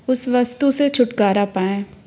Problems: none marked